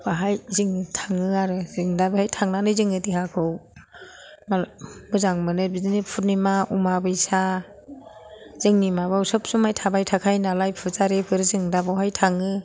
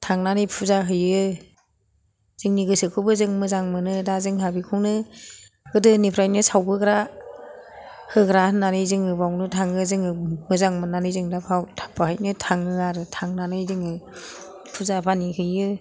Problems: background sounds at intervals, background conversations at intervals